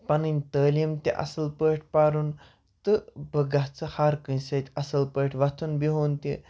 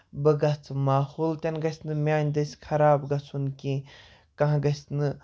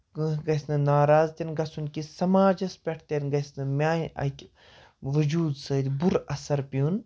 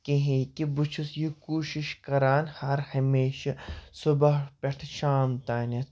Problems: none marked